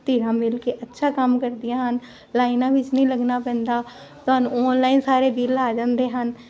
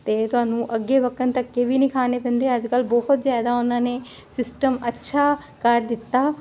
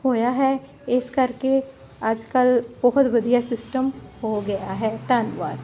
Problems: constant background noise